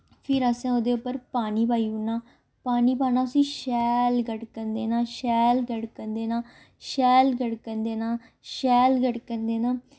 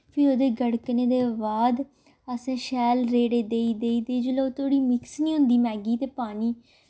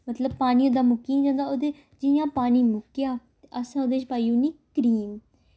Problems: none marked